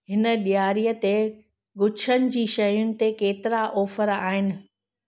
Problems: none marked